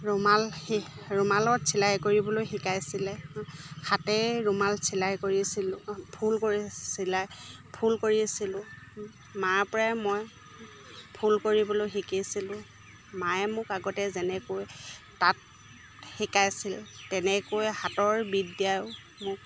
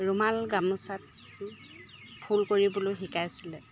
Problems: none marked